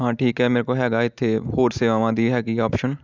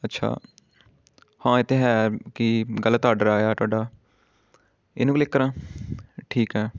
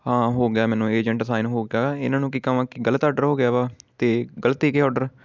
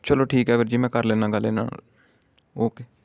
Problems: background sounds at intervals